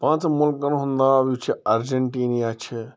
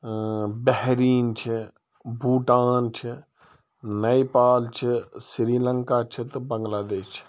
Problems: background sounds at intervals